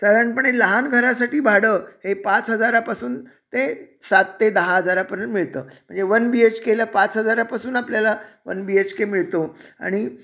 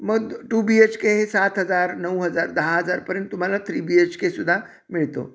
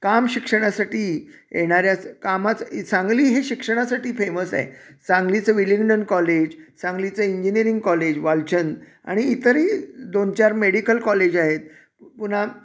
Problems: none marked